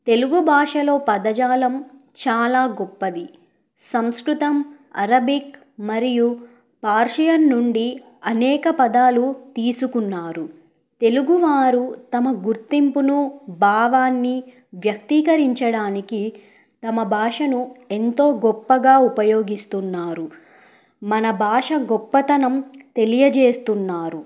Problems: none marked